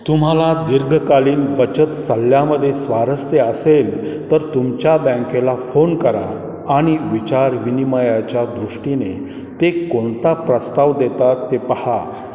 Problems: background sounds at intervals